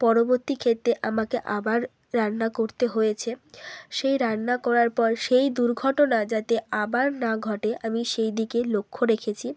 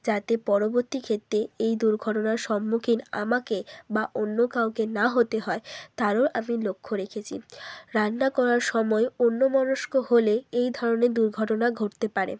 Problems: background sounds at intervals